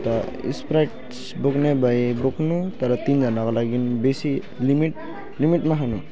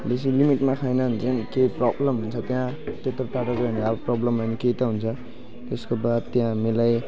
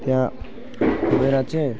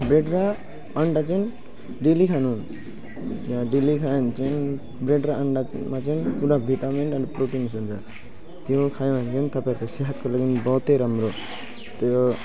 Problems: background sounds at intervals